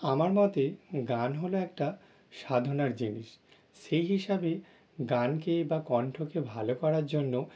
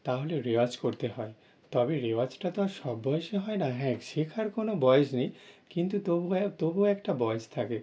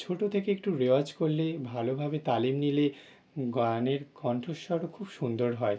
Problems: background sounds at intervals